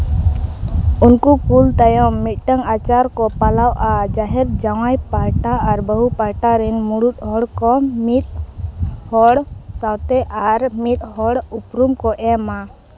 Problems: background sounds at intervals